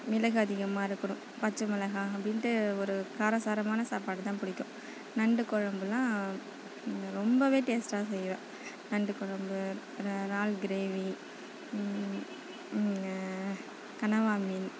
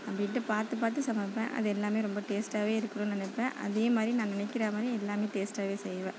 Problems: none marked